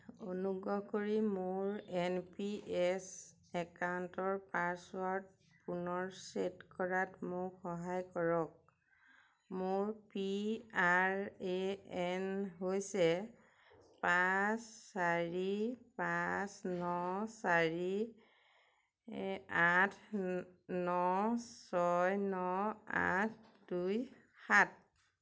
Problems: none marked